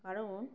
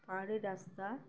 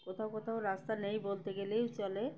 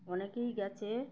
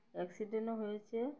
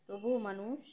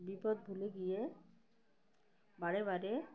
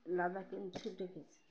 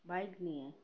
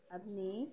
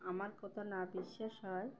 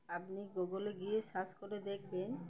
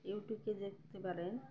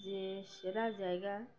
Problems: none marked